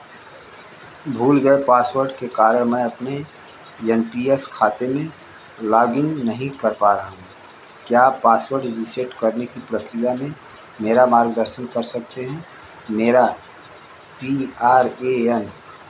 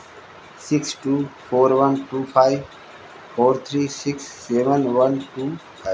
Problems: constant background noise